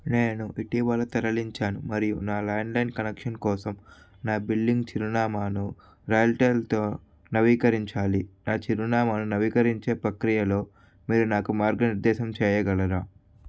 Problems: constant background noise